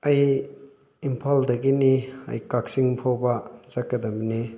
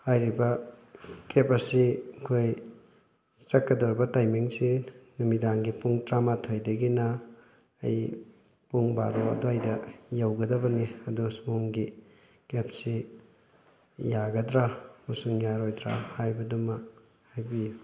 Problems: background sounds at intervals